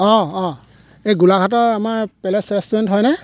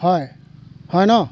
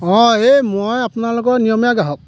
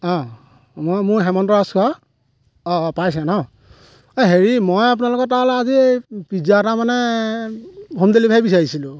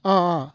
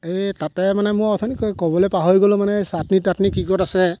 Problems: background sounds at intervals